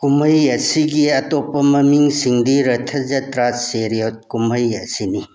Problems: background conversations at intervals